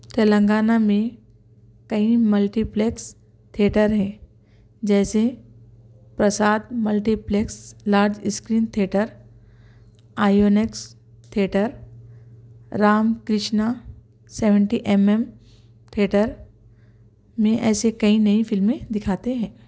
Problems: none marked